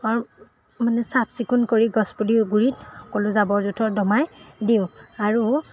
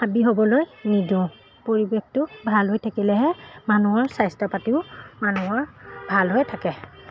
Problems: background sounds at intervals